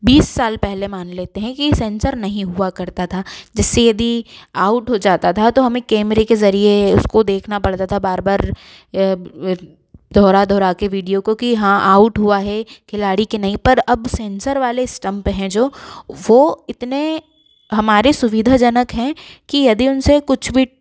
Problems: none marked